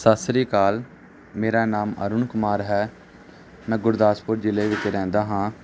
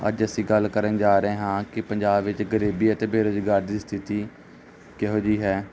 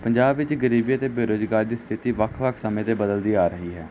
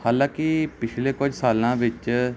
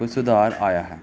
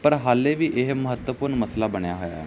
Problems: constant background noise